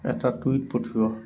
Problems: background sounds at intervals